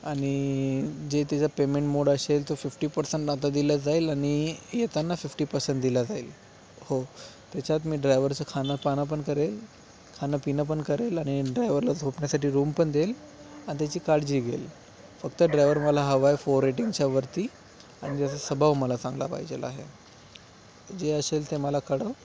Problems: constant background noise